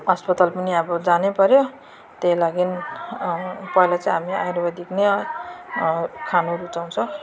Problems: constant background noise